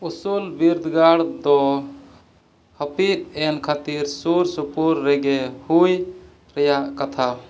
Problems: none marked